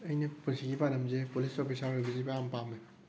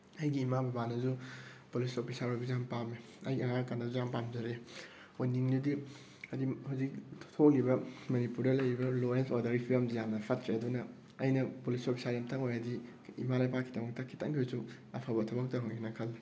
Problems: none marked